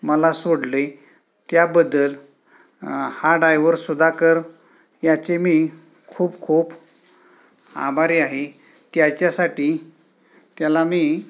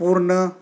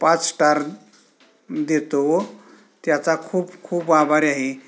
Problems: constant background noise, background conversations at intervals